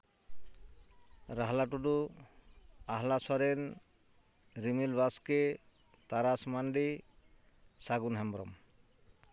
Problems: none marked